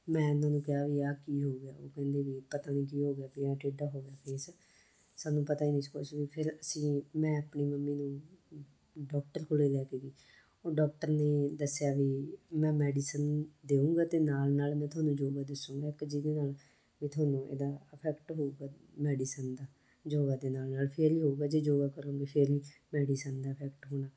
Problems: none marked